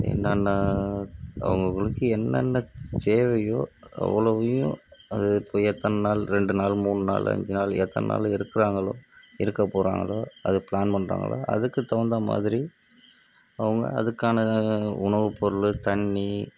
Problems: constant background noise, low volume